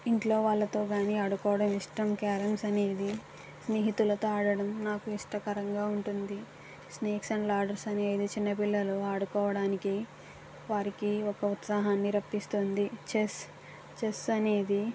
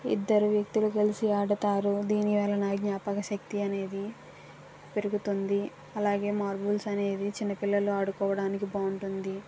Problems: constant background noise